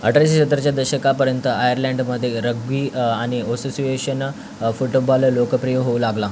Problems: constant background noise